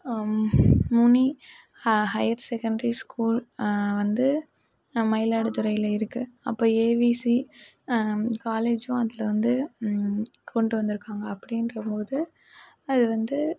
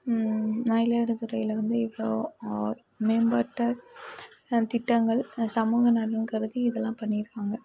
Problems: none marked